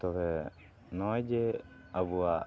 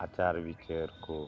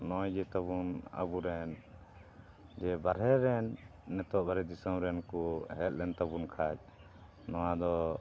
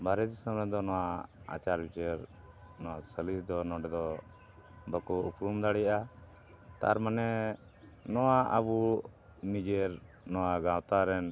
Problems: none marked